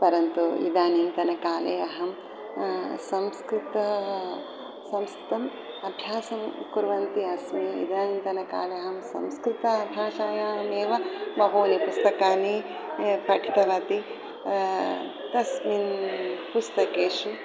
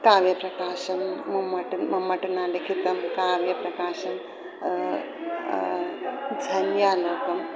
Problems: none marked